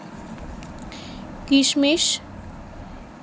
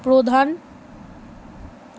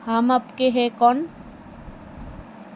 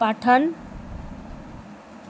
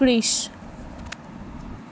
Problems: none marked